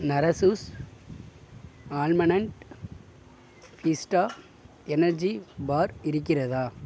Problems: none marked